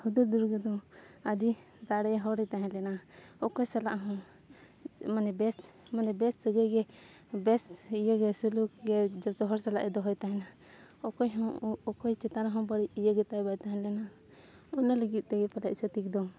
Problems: constant background noise, background conversations at intervals